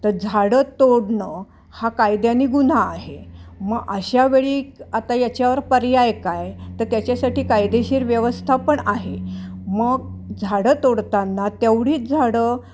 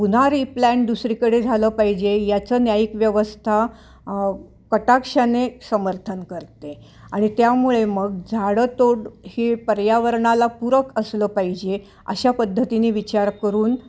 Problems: none marked